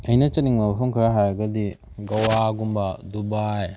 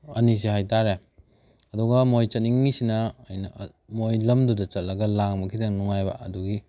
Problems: none marked